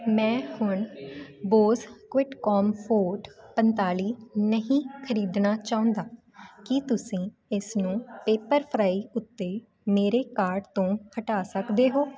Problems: continuous background conversations